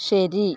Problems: background sounds at intervals